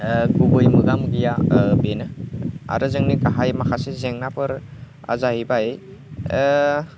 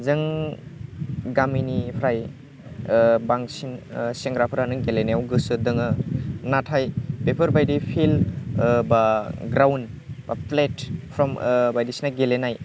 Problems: constant background noise